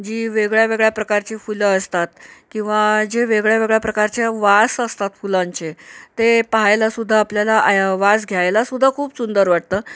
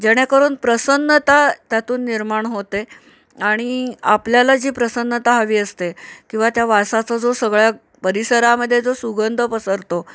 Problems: none marked